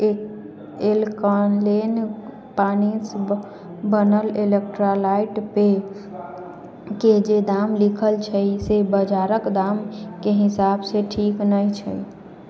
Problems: background conversations at intervals